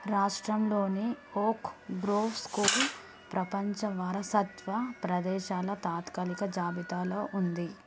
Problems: background sounds at intervals, background conversations at intervals